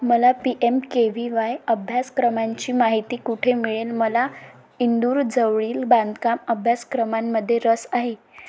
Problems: background sounds at intervals